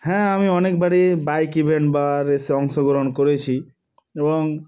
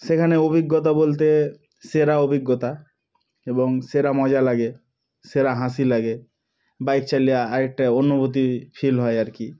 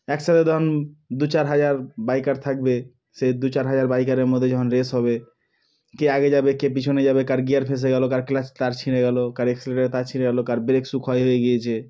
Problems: background sounds at intervals